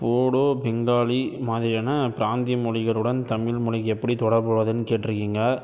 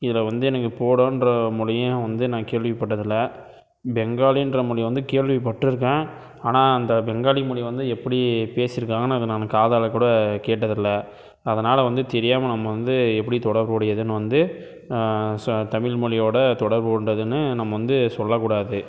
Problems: none marked